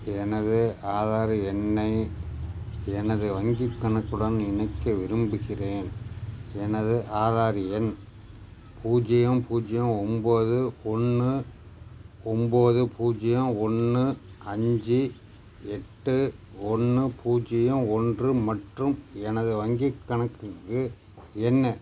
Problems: background sounds at intervals